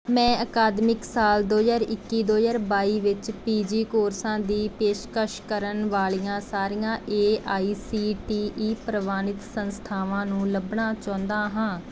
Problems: background sounds at intervals